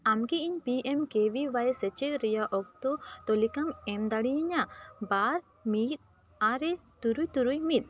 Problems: none marked